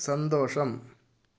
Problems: low volume